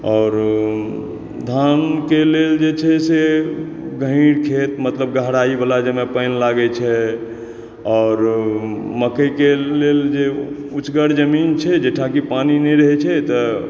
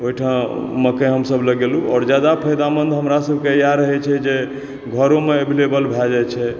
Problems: background sounds at intervals